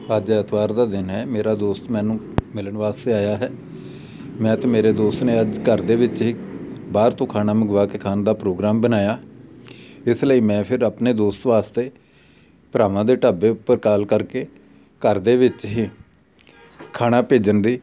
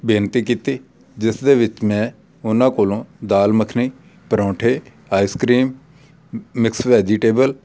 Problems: none marked